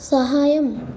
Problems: none marked